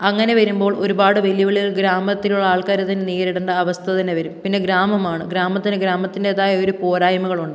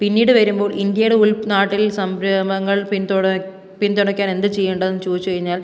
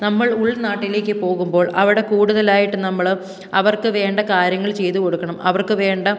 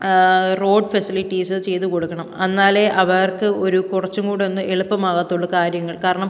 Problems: none marked